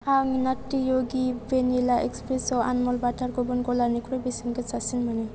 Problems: low volume